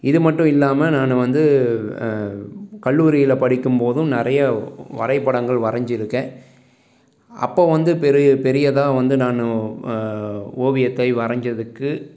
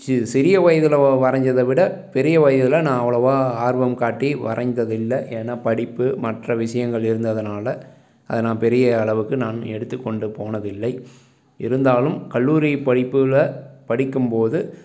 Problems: background sounds at intervals, background conversations at intervals